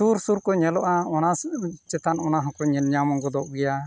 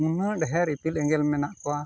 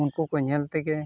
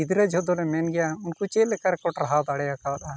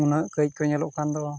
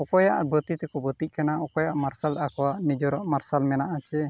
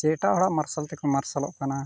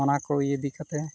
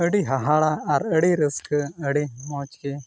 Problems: background sounds at intervals